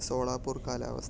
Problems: low volume